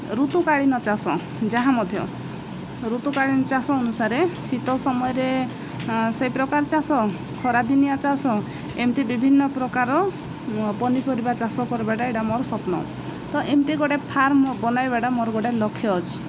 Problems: none marked